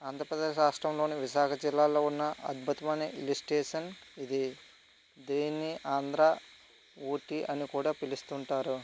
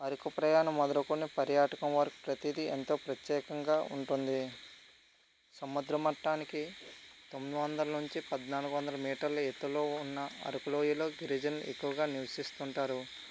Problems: constant background noise